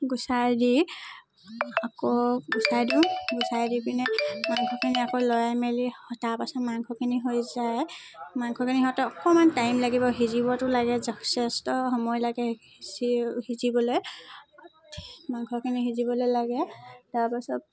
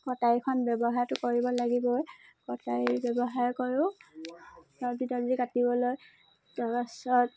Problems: constant background noise, background conversations at intervals